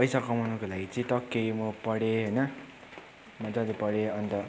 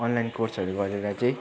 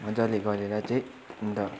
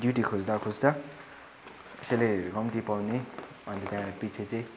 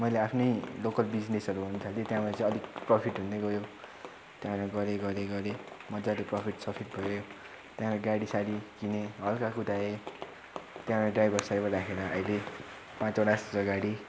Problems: constant background noise, continuous background conversations